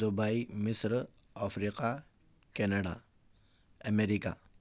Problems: none marked